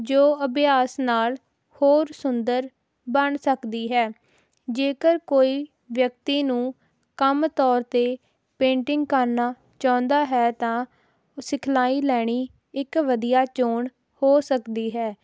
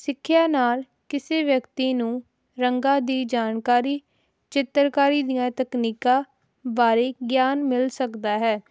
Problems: none marked